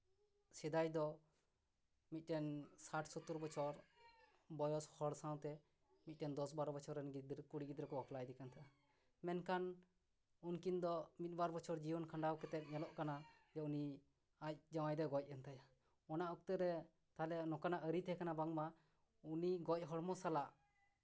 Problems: none marked